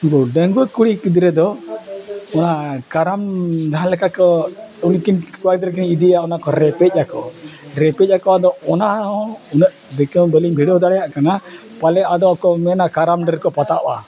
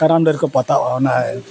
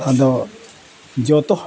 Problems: constant background noise, background conversations at intervals